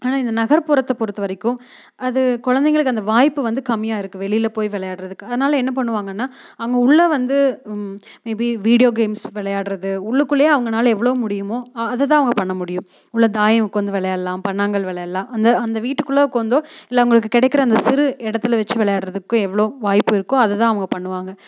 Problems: none marked